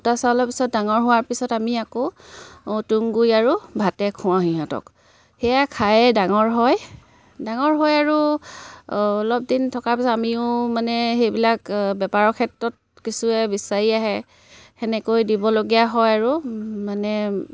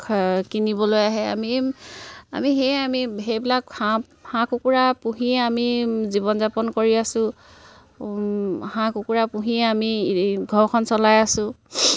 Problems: none marked